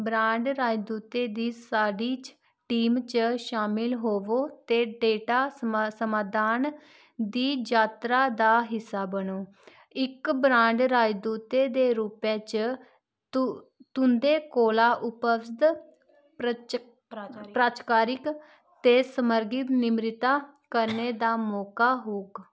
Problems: constant background noise